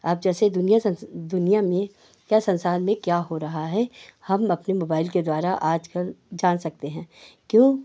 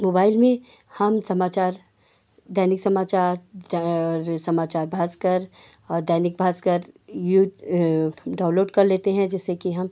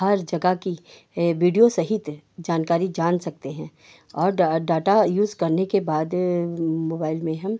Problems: none marked